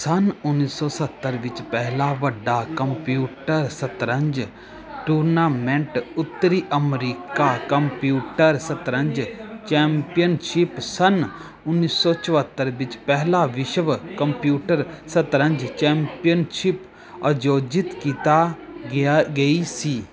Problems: continuous background conversations